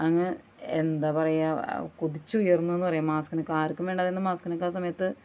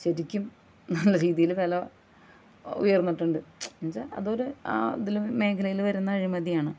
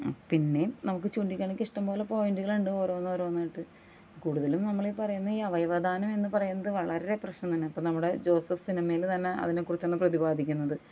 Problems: none marked